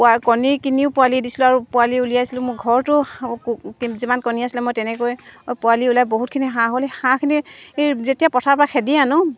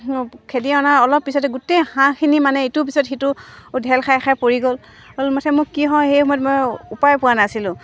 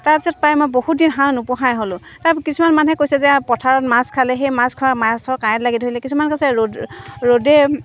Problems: constant background noise